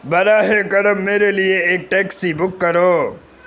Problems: constant background noise